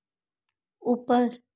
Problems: none marked